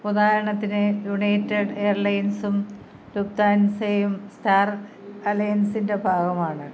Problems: none marked